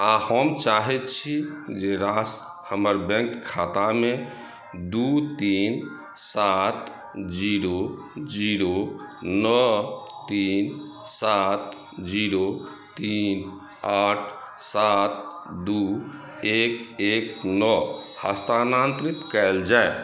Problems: background sounds at intervals